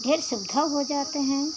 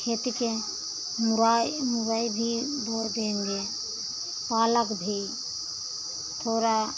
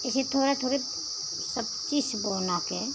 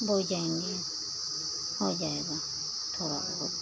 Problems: constant background noise